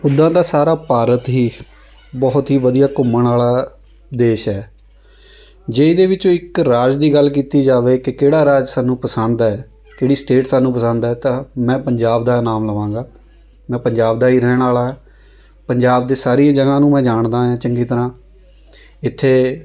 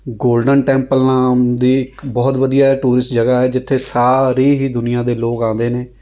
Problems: constant background noise